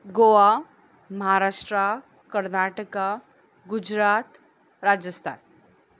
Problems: none marked